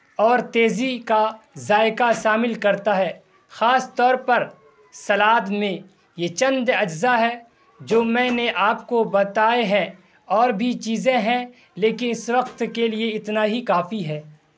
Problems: constant background noise